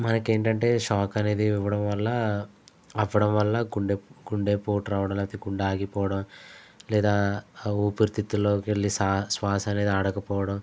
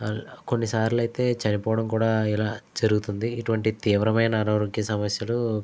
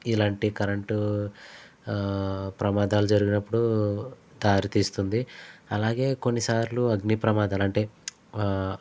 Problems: constant background noise